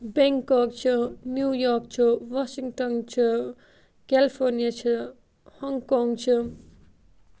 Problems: none marked